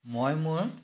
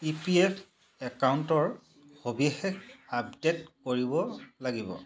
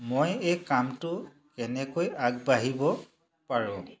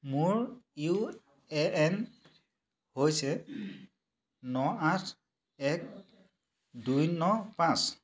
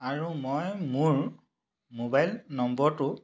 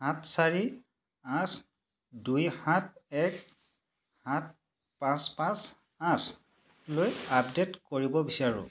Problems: none marked